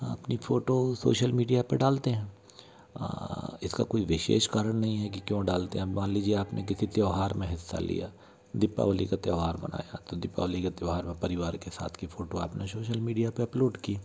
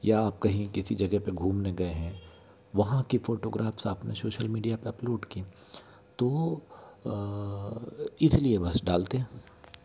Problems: constant background noise